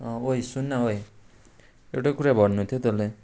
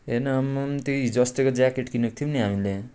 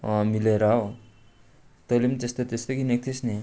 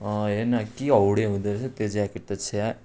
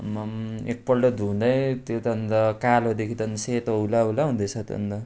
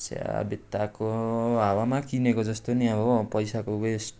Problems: background sounds at intervals